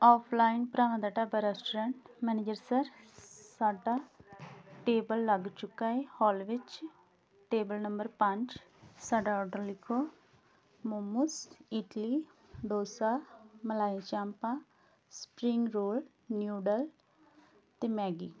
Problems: background sounds at intervals